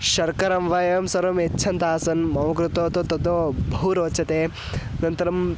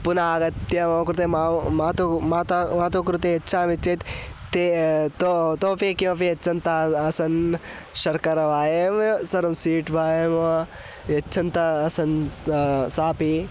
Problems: background sounds at intervals